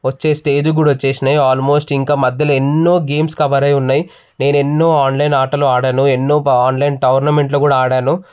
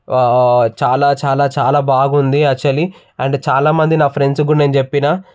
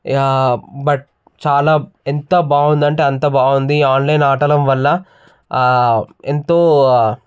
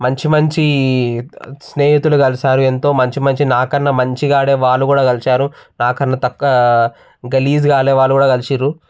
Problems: none marked